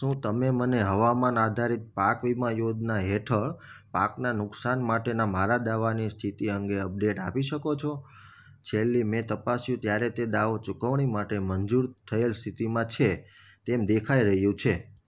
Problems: none marked